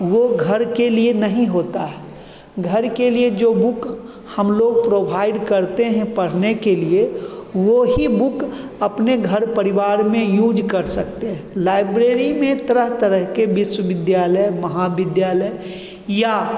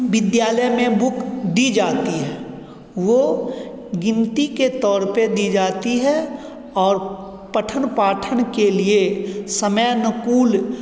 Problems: constant background noise, continuous background conversations, echo